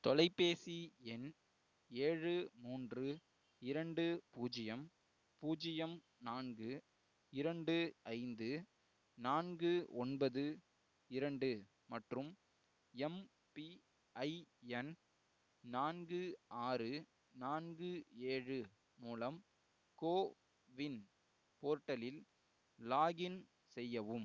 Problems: none marked